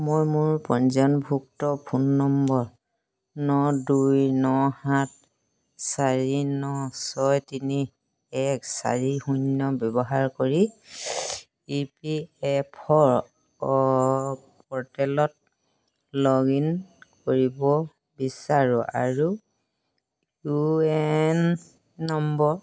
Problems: constant background noise